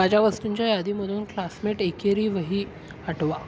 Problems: constant background noise